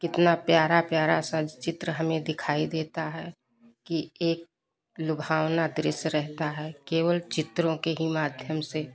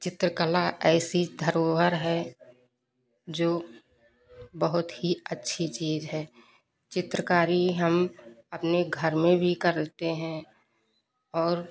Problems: none marked